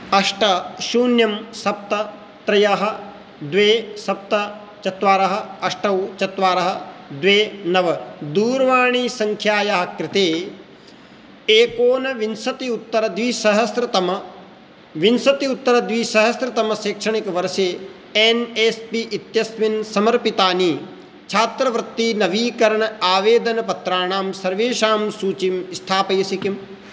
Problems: constant background noise